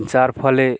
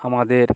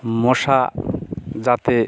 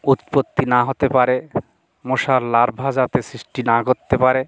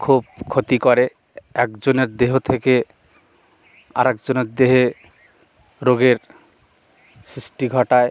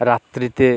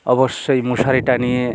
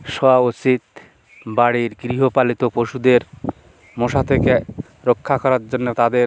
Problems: constant background noise